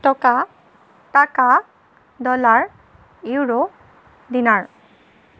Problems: none marked